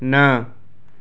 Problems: constant background noise